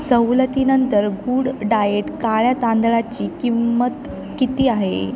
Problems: none marked